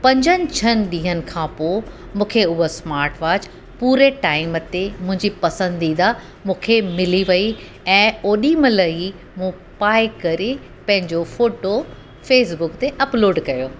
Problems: constant background noise